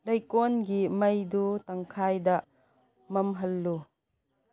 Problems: none marked